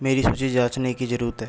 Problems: constant background noise